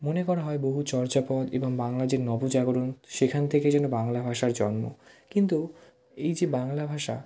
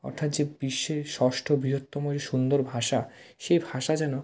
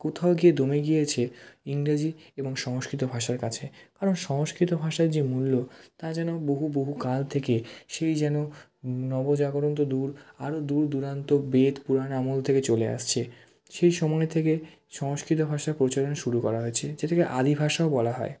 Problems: background sounds at intervals